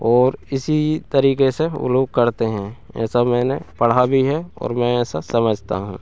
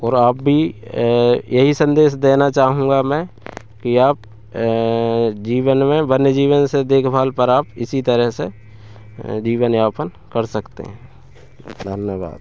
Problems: none marked